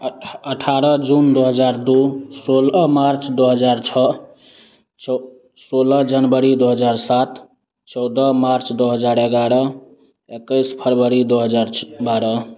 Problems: constant background noise, continuous background conversations